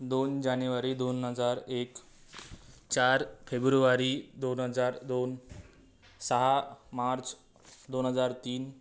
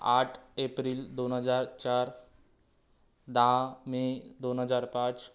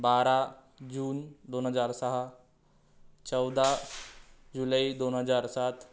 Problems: none marked